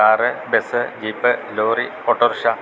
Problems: constant background noise